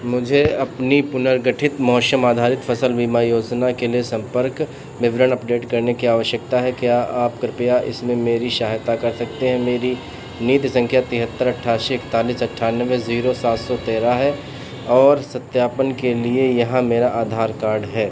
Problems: none marked